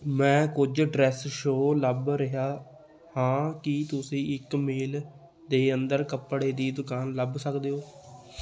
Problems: background sounds at intervals, continuous background conversations